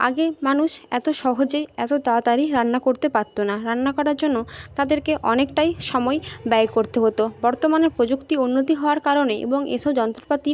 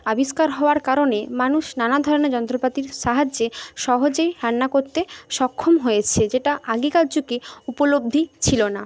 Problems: none marked